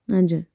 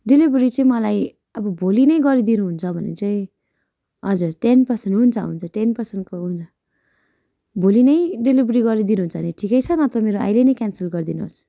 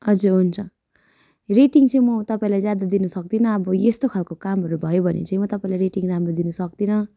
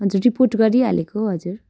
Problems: background sounds at intervals